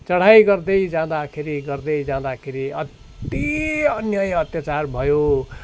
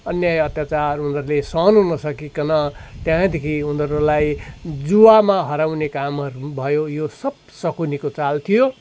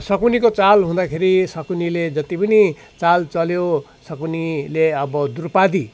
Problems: constant background noise, continuous background conversations